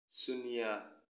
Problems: low volume